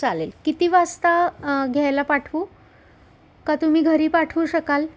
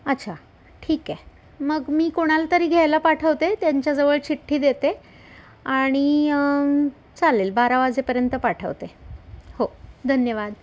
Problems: none marked